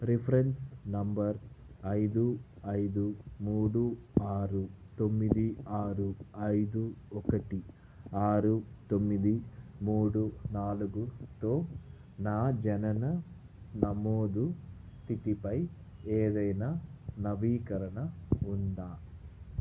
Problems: background sounds at intervals, low volume